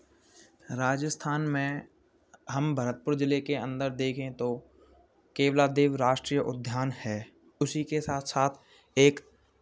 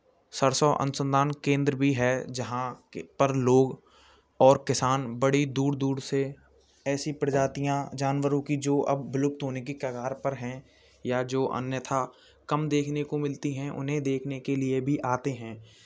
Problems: none marked